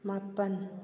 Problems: none marked